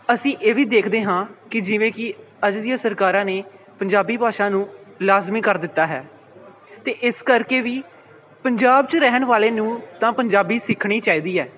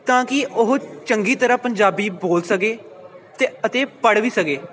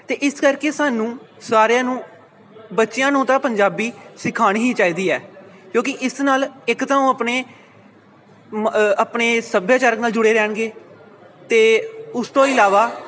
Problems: background sounds at intervals